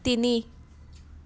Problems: none marked